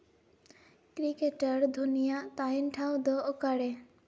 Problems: background sounds at intervals, echo